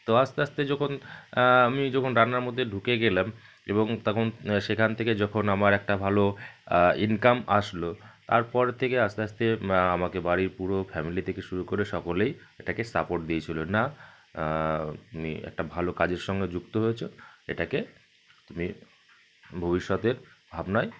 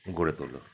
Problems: constant background noise